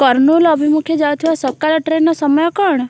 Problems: constant background noise